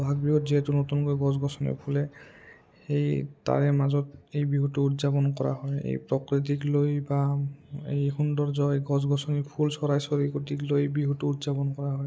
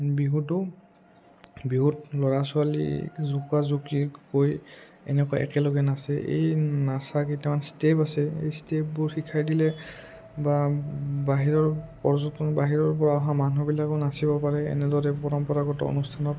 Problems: low volume